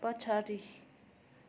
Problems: continuous background conversations